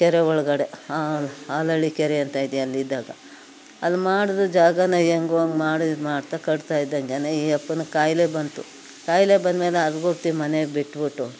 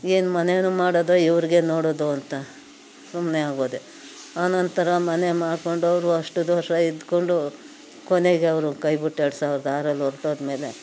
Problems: none marked